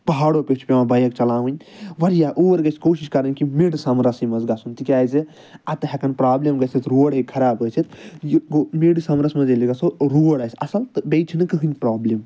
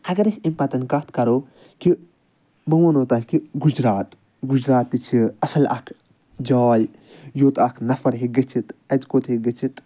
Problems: none marked